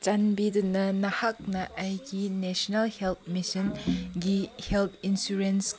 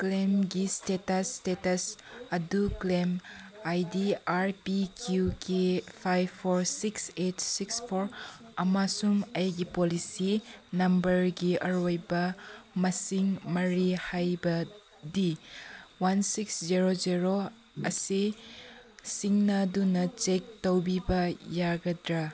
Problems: background sounds at intervals